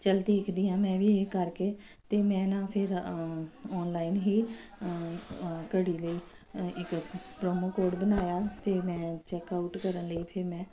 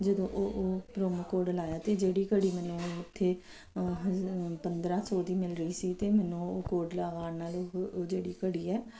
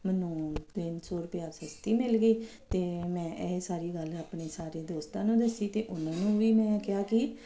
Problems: constant background noise